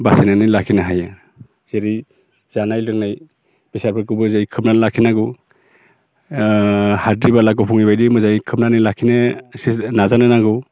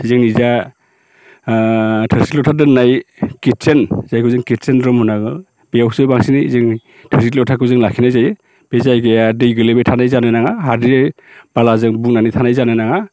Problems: none marked